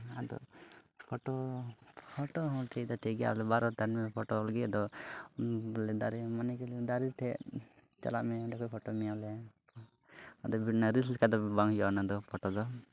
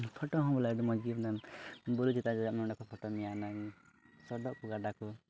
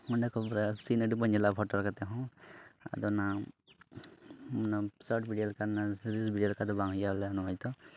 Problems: background sounds at intervals, low volume